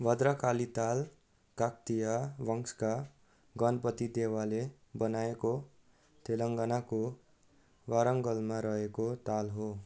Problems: background sounds at intervals